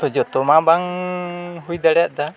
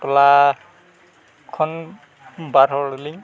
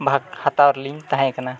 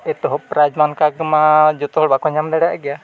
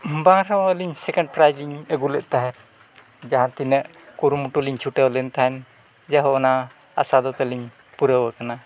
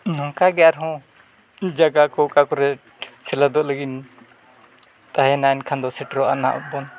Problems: background sounds at intervals